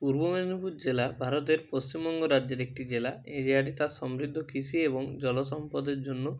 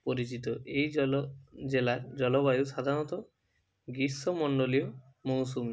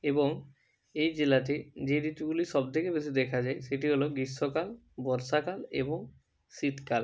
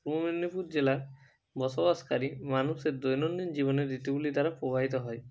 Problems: none marked